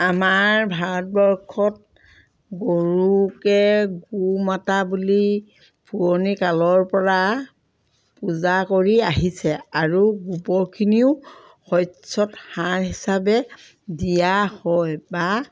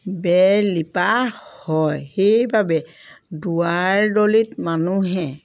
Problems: background sounds at intervals